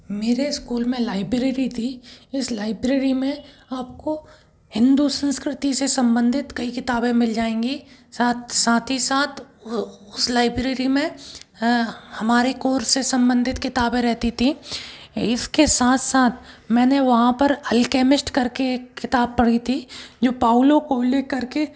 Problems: background sounds at intervals